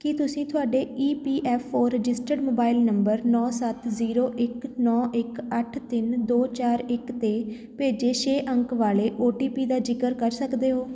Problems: background conversations at intervals